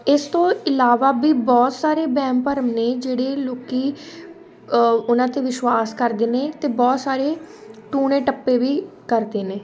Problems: constant background noise, background conversations at intervals